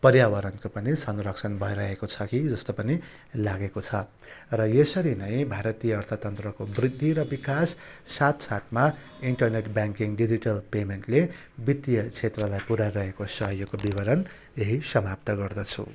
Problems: background sounds at intervals